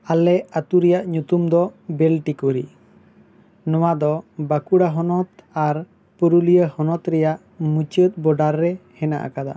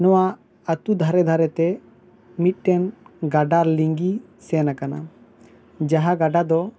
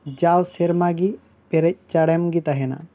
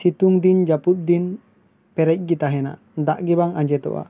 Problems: none marked